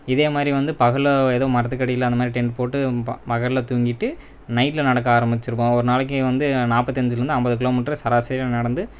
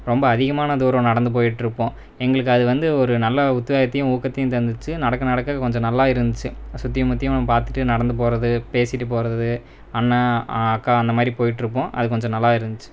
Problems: none marked